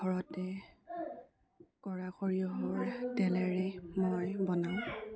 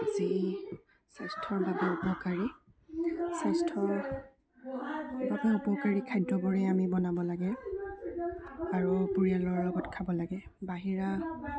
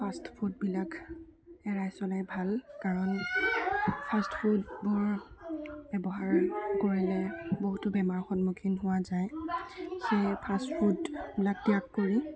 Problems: constant background noise, continuous background conversations, low volume